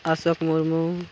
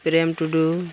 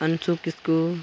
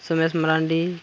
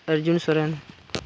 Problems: none marked